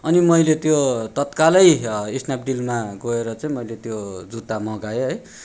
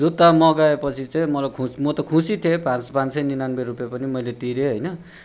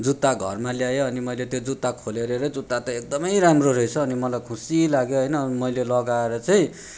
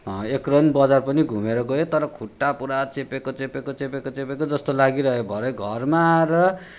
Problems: none marked